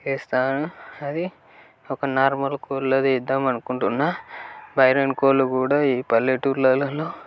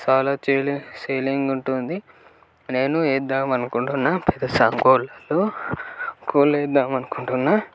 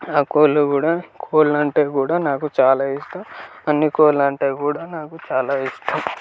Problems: constant background noise, background conversations at intervals